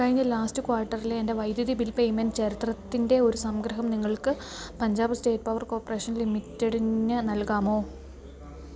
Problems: low volume